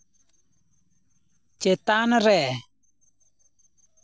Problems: none marked